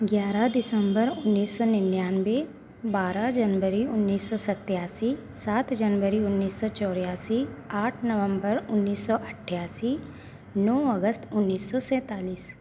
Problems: none marked